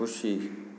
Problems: constant background noise, background conversations at intervals